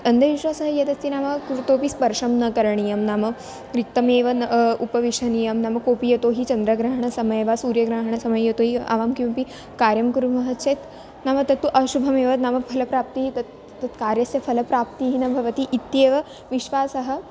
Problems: background sounds at intervals